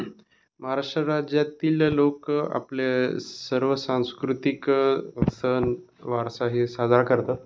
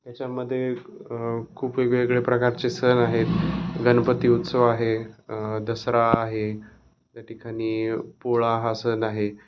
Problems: none marked